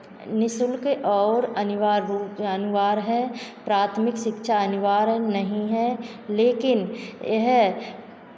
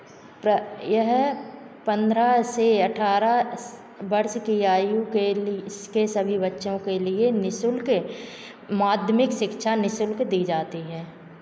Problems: constant background noise, background conversations at intervals